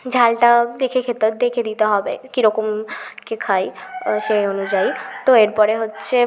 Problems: constant background noise